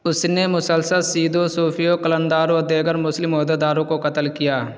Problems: constant background noise